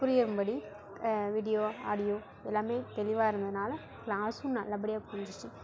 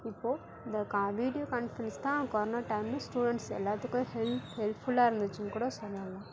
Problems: constant background noise